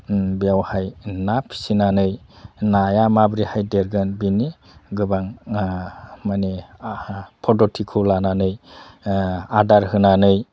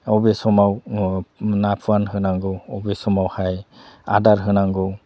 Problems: constant background noise